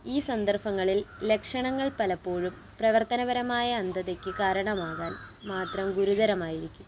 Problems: constant background noise